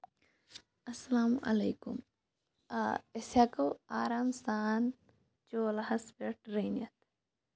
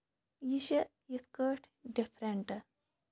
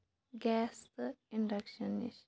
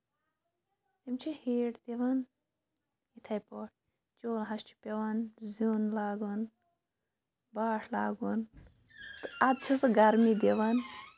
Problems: none marked